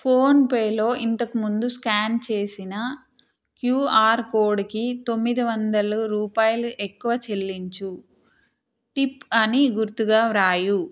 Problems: none marked